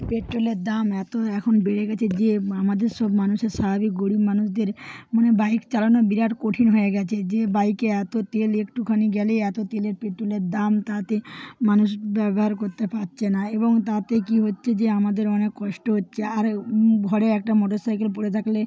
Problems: background sounds at intervals